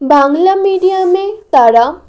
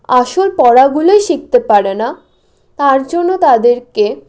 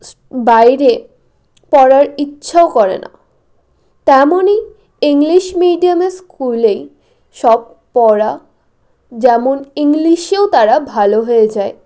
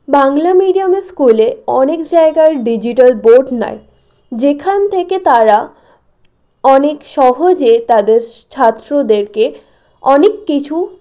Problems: none marked